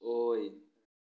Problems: low volume